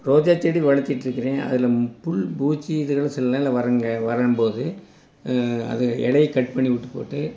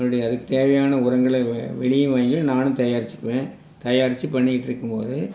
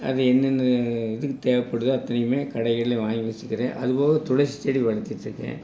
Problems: none marked